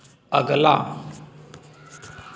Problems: constant background noise